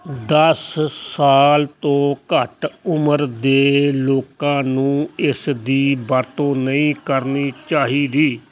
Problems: none marked